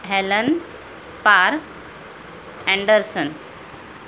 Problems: constant background noise